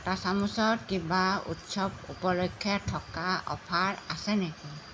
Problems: constant background noise